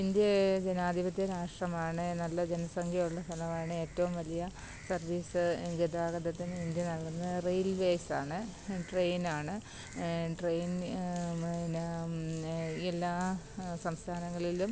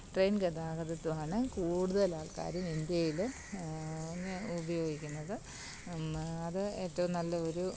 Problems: none marked